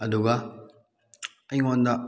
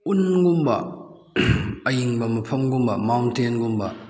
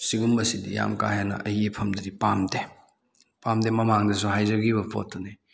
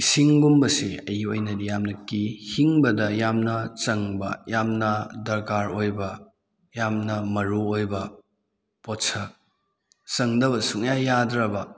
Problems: none marked